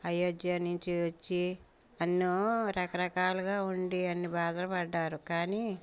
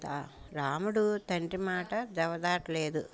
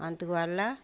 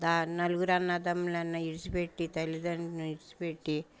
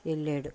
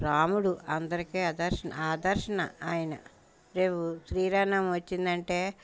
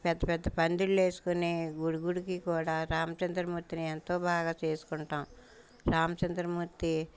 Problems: background sounds at intervals